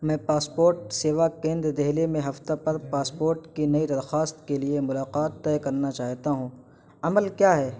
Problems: constant background noise